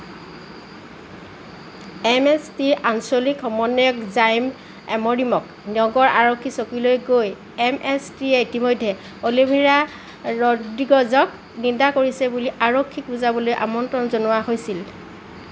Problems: none marked